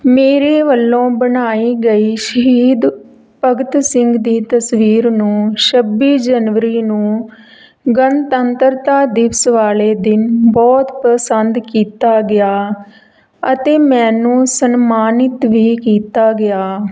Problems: none marked